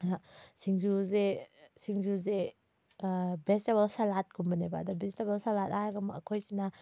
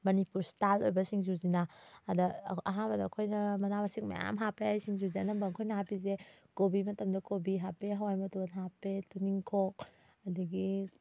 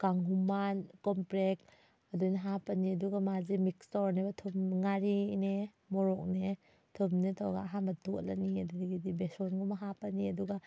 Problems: background sounds at intervals